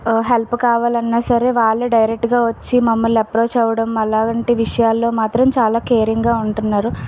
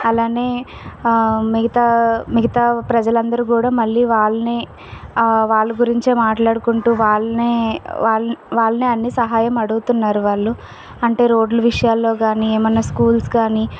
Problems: none marked